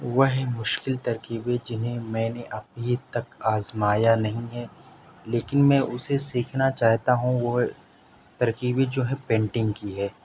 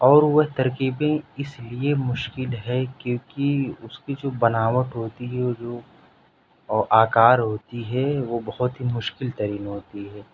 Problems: none marked